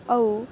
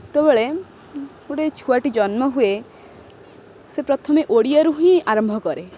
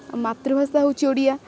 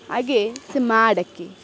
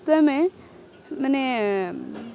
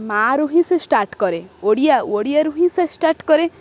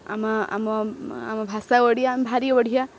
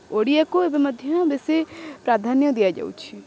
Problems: constant background noise